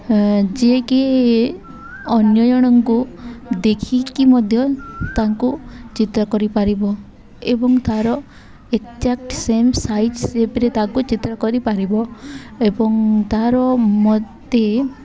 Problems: background sounds at intervals, background conversations at intervals